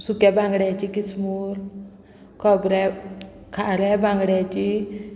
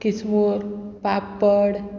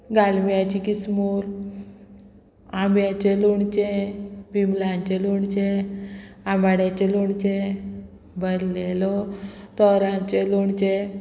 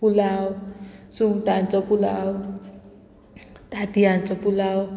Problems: continuous background conversations